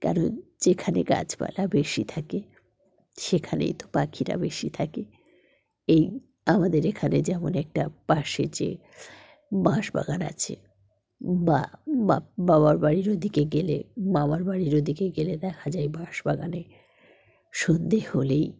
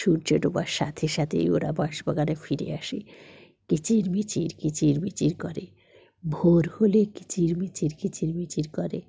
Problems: background sounds at intervals